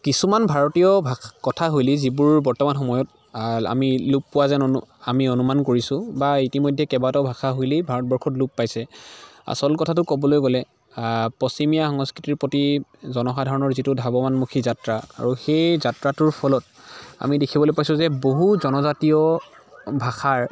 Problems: background sounds at intervals, continuous background conversations